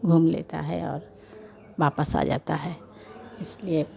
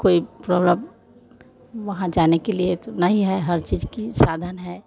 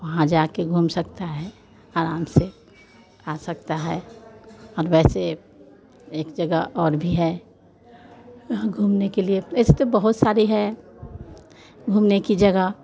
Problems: none marked